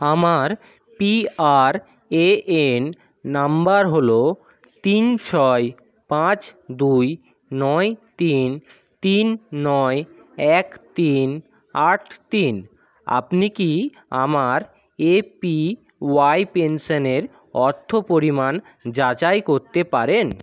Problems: background sounds at intervals, background conversations at intervals